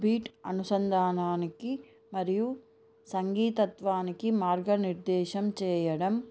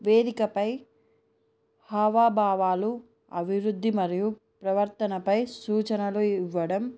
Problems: constant background noise